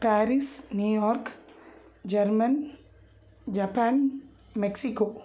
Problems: none marked